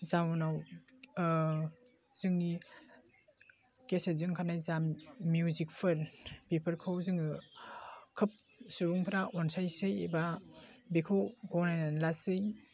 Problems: low volume